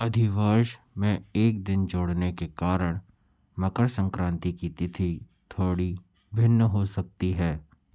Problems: constant background noise